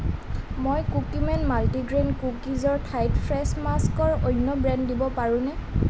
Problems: none marked